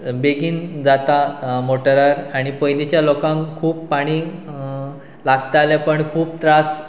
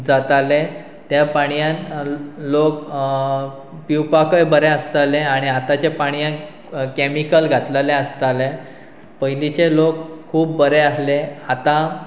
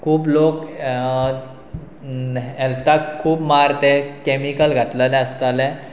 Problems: constant background noise